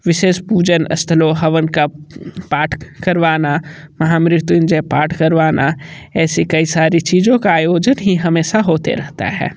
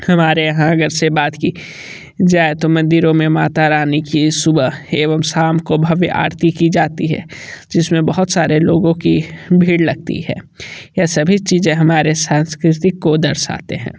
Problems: background sounds at intervals